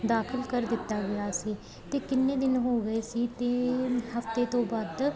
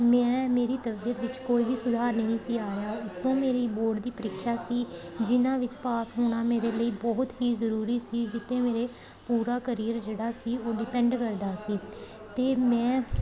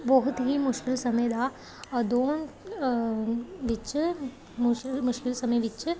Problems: constant background noise